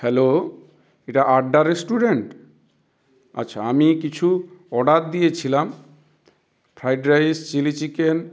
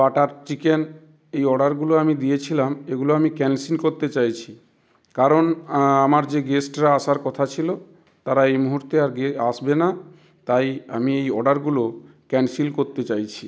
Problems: constant background noise